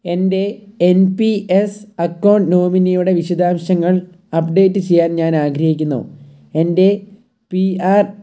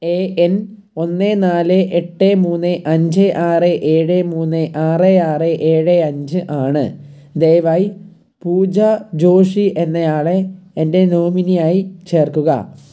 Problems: low volume